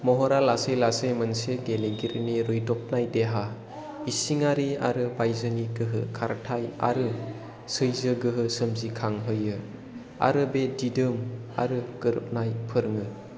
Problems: low volume